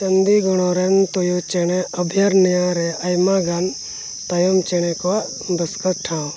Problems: constant background noise